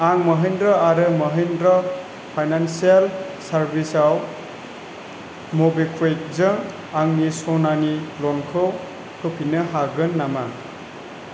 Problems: constant background noise